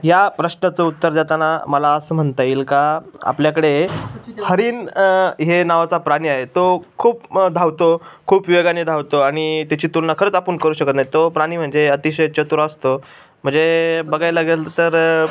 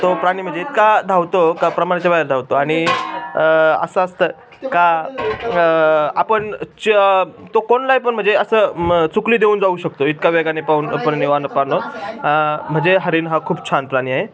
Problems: constant background noise, continuous background conversations